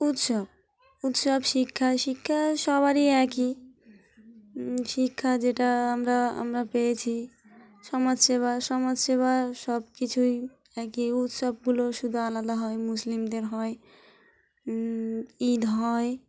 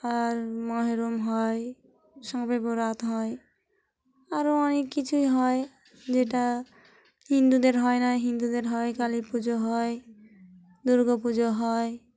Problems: background sounds at intervals